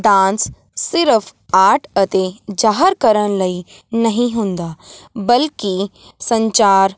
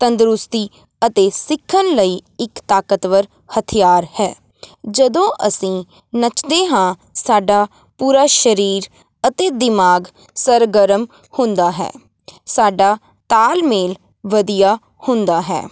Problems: none marked